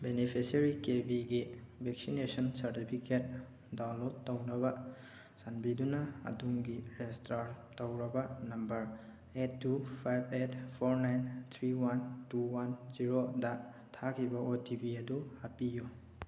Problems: none marked